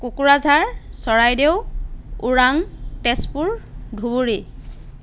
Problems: background sounds at intervals